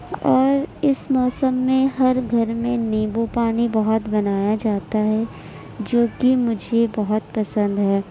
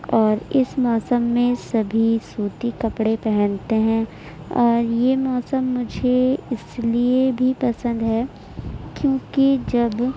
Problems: none marked